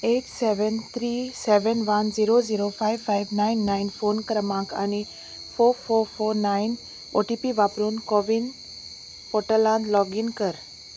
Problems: none marked